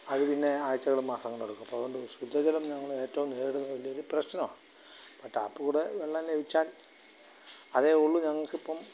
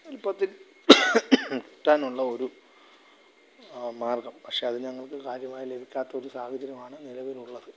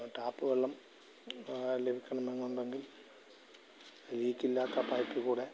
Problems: background sounds at intervals, low volume